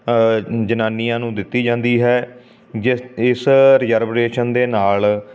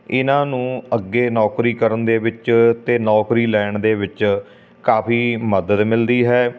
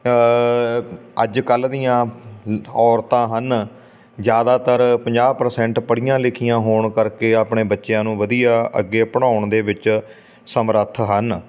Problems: none marked